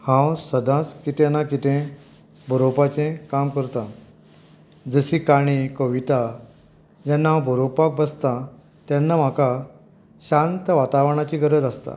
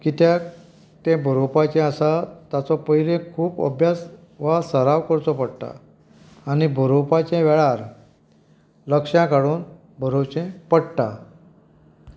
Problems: background sounds at intervals